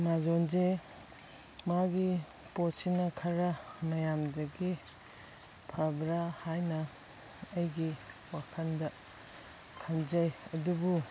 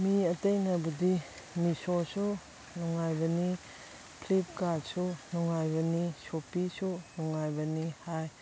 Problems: background sounds at intervals